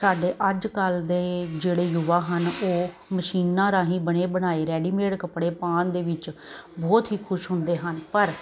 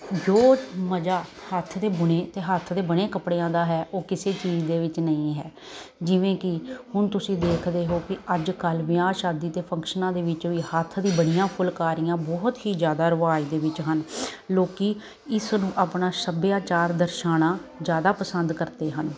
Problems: none marked